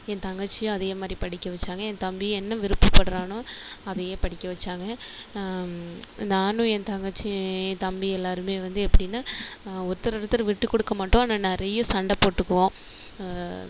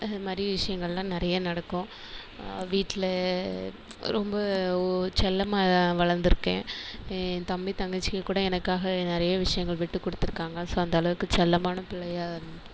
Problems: background sounds at intervals